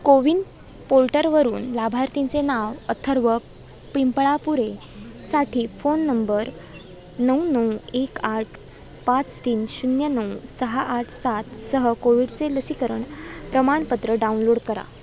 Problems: constant background noise, background conversations at intervals